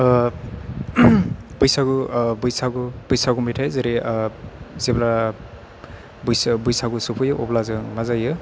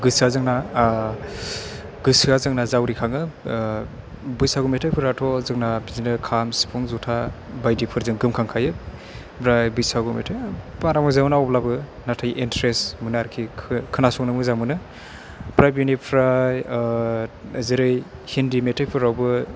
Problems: none marked